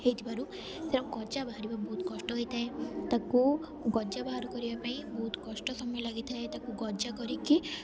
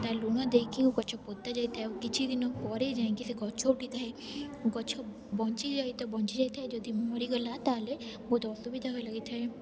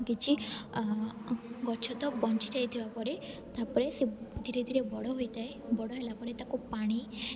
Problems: constant background noise, continuous background conversations